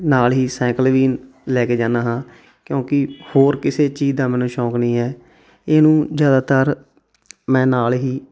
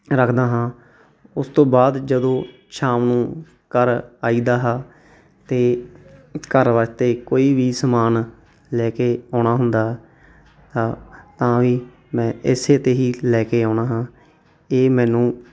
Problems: background sounds at intervals